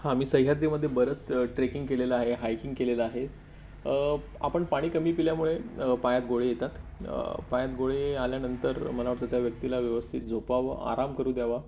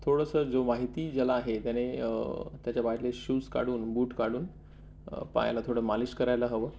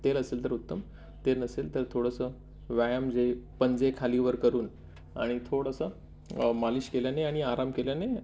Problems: none marked